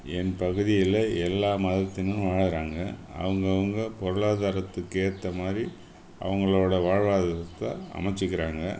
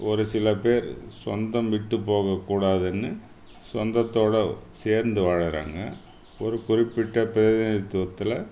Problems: background sounds at intervals